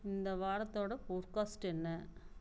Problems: constant background noise